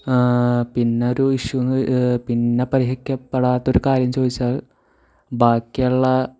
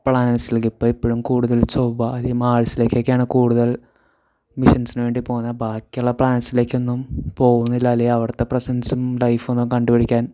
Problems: none marked